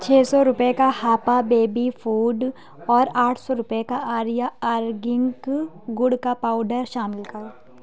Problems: background sounds at intervals, background conversations at intervals